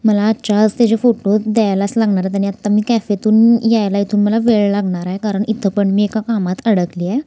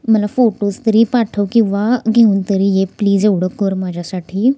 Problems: none marked